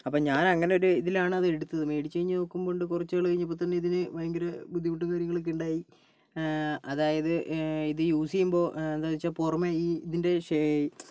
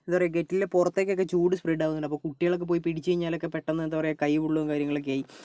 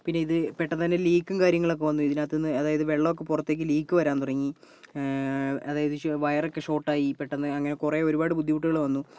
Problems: none marked